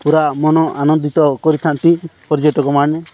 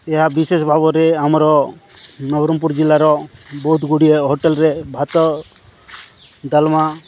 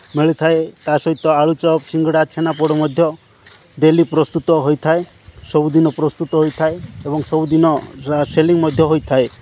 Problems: background sounds at intervals